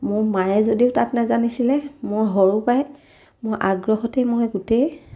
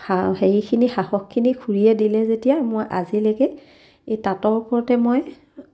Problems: none marked